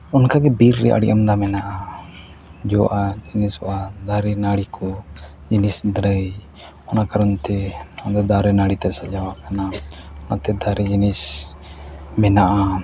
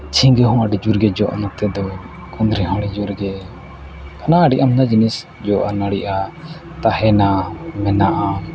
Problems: background sounds at intervals, low volume